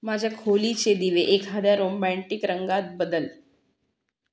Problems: background sounds at intervals